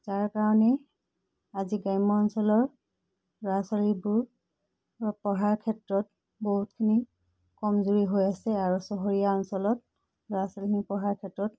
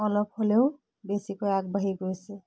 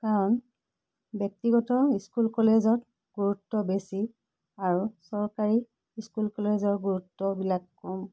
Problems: constant background noise